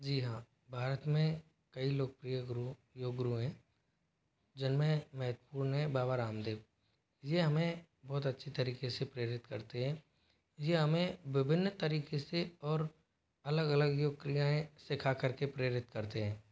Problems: none marked